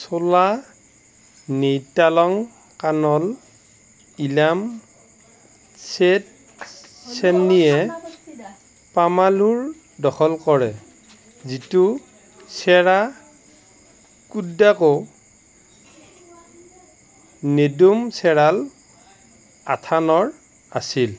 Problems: background conversations at intervals